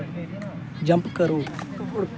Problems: background sounds at intervals